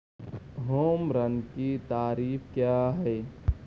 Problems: constant background noise, low volume